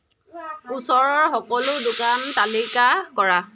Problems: constant background noise